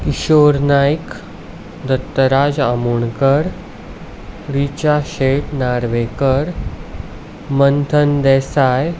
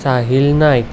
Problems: constant background noise